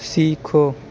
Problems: none marked